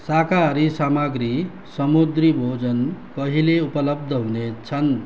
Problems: constant background noise